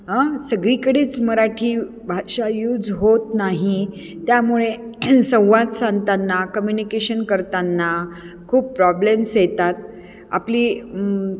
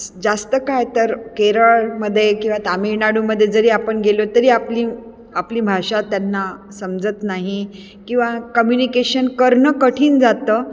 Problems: constant background noise, echo